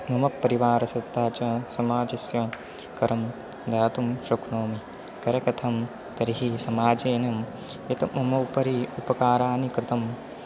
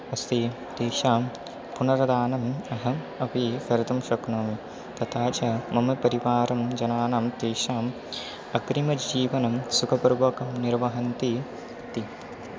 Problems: constant background noise